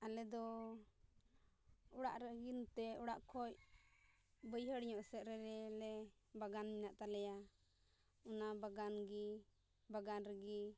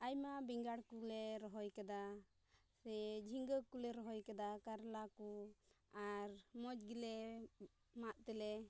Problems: background sounds at intervals, low volume